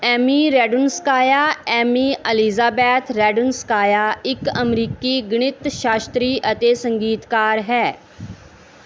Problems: none marked